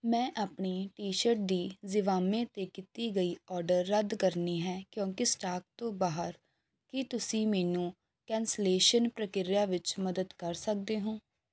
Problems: background sounds at intervals